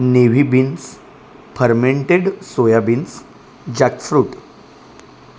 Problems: constant background noise